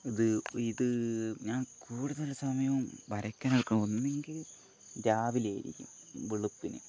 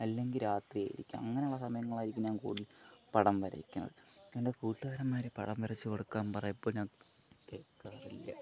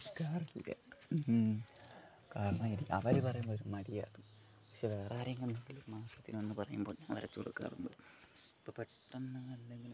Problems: low volume